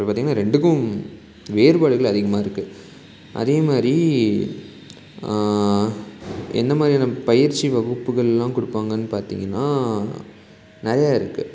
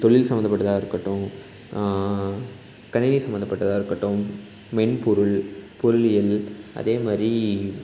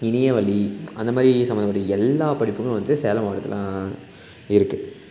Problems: constant background noise